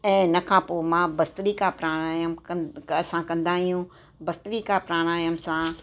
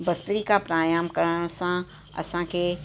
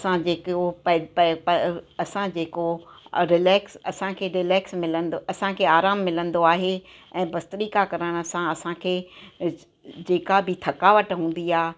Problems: constant background noise, echo